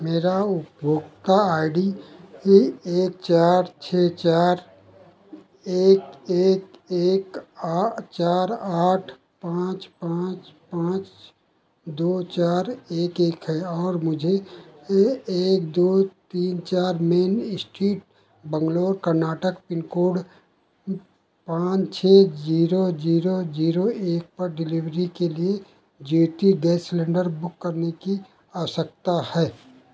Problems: constant background noise